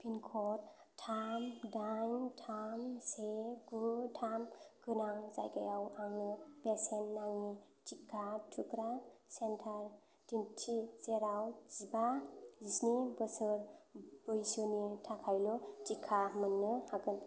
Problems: background sounds at intervals